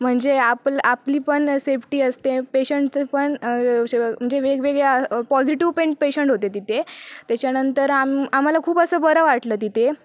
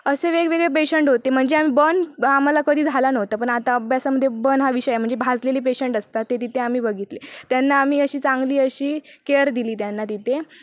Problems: none marked